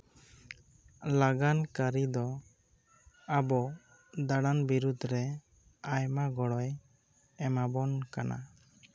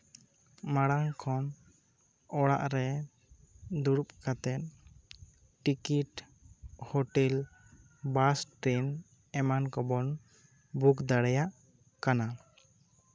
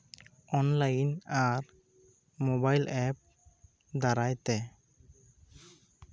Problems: none marked